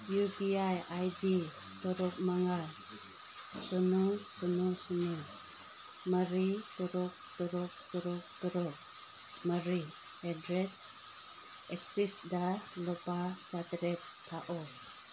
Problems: constant background noise